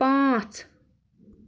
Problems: background sounds at intervals